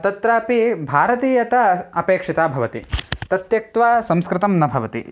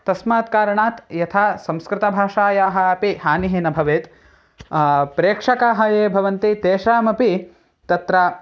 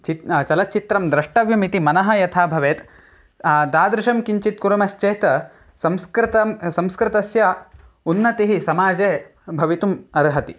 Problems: none marked